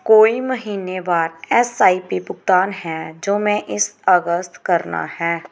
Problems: background sounds at intervals